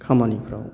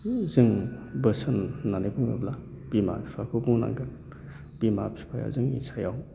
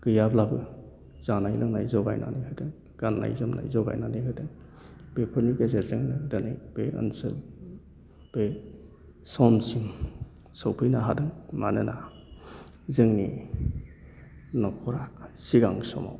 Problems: constant background noise